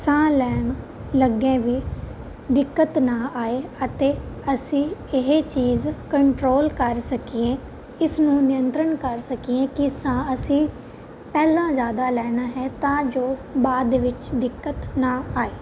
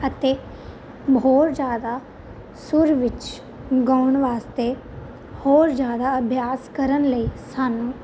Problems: constant background noise